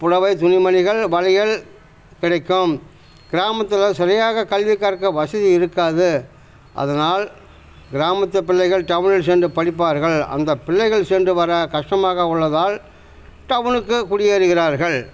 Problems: constant background noise